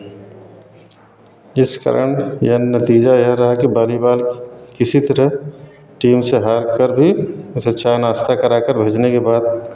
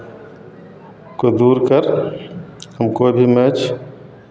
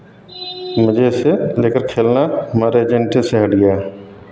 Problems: background sounds at intervals